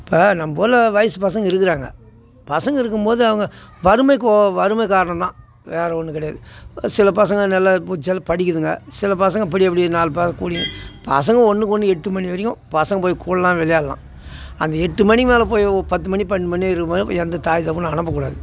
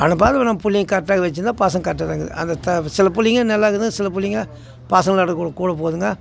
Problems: none marked